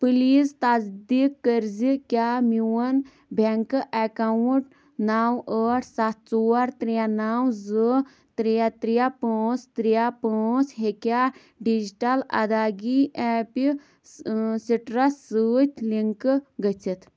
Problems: constant background noise